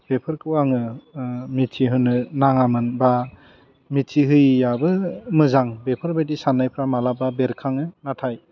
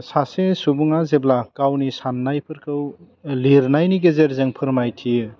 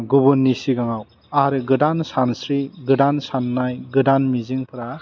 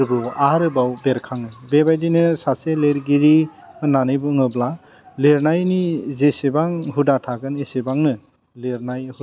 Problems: none marked